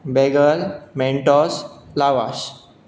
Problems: constant background noise